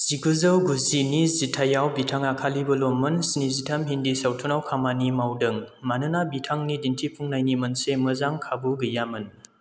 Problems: low volume